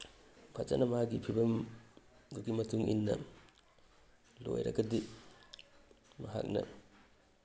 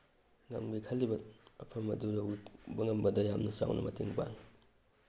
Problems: none marked